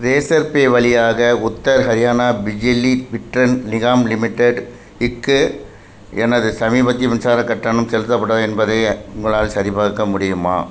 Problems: constant background noise